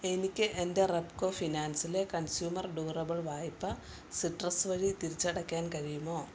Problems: none marked